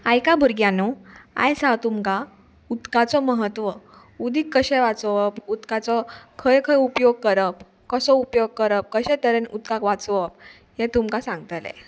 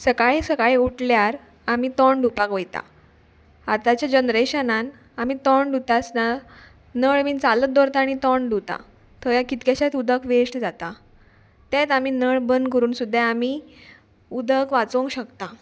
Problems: none marked